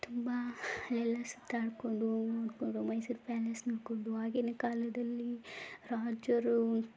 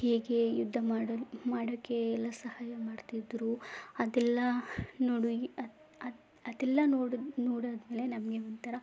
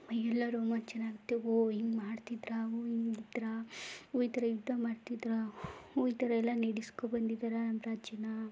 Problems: none marked